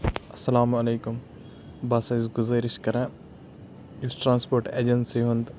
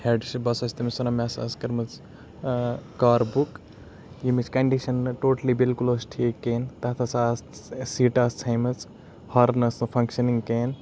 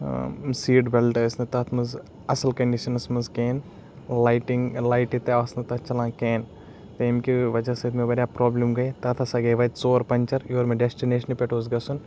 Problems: background sounds at intervals